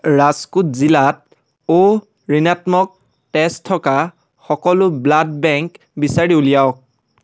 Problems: none marked